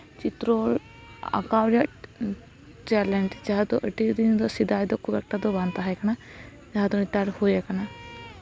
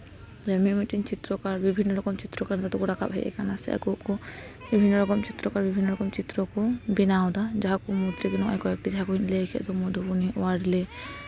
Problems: background sounds at intervals, background conversations at intervals